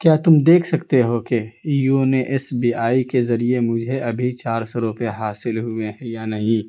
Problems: constant background noise